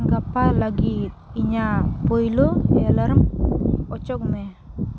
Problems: constant background noise